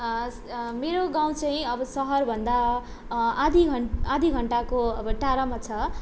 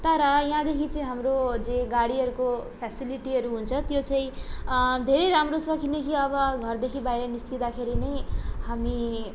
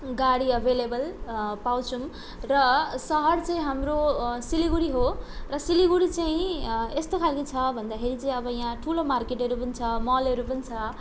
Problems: none marked